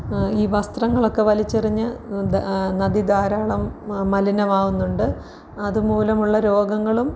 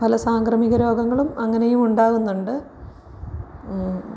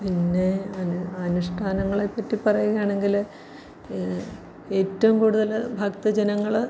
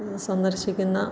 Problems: none marked